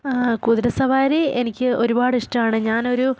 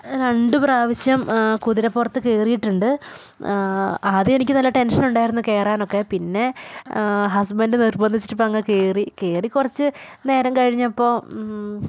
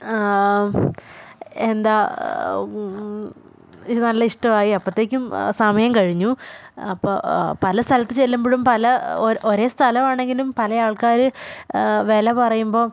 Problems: background sounds at intervals